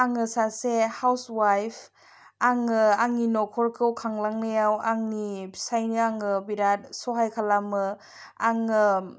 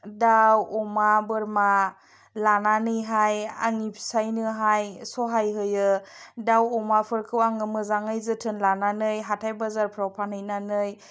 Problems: none marked